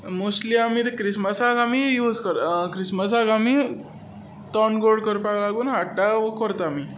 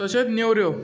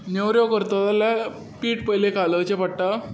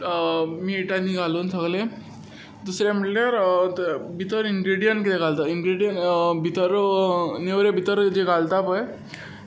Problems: none marked